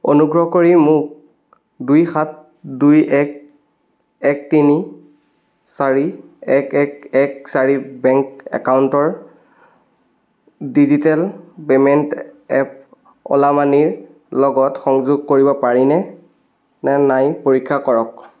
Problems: background sounds at intervals